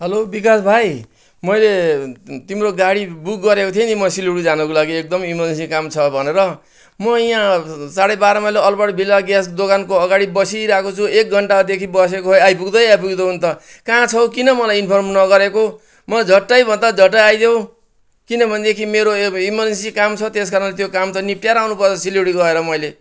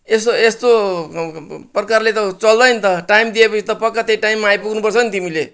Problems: background sounds at intervals